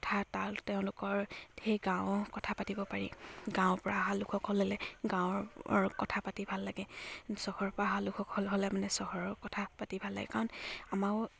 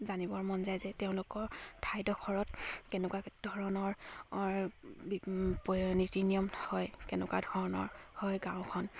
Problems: none marked